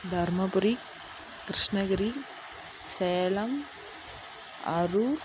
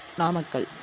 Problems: constant background noise